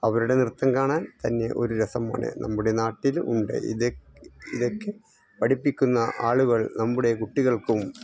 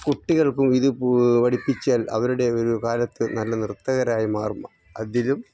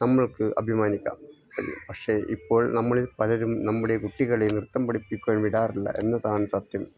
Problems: none marked